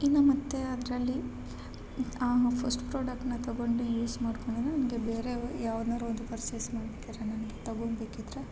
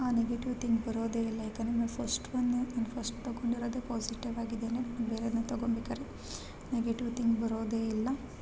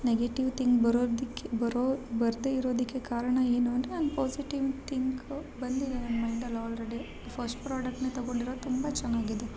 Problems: constant background noise